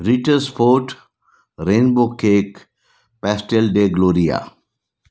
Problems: none marked